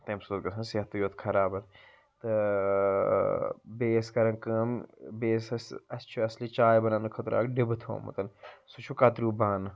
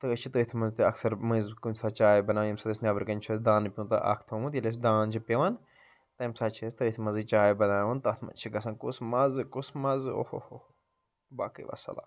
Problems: none marked